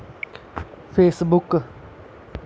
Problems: constant background noise